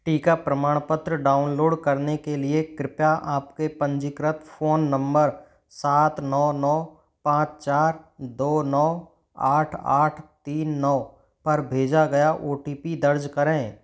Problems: none marked